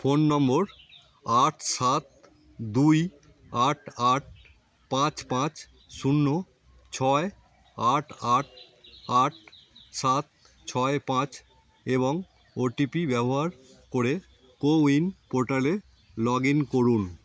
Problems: constant background noise